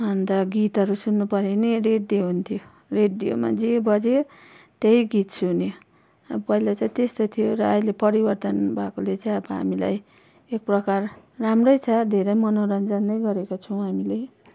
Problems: none marked